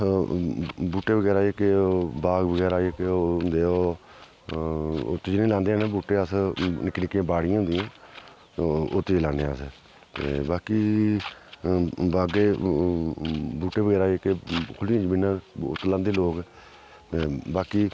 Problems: background sounds at intervals, background conversations at intervals